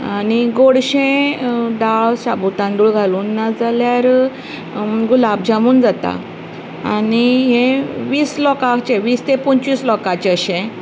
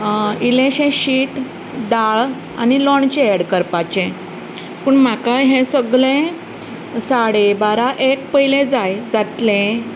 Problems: none marked